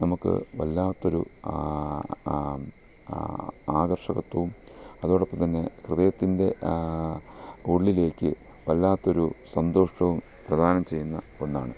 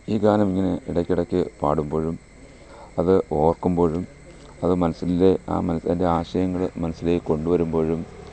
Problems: low volume